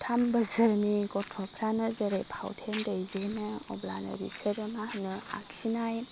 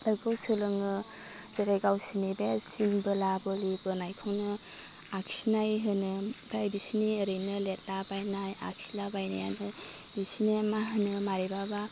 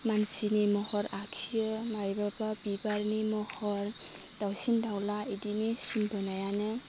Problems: constant background noise